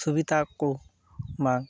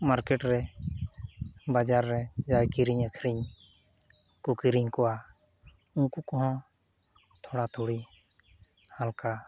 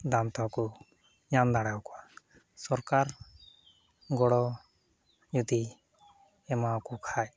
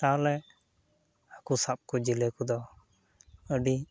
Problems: background sounds at intervals